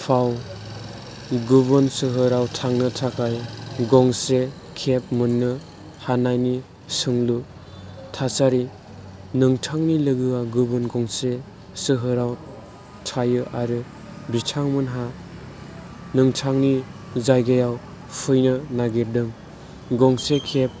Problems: background sounds at intervals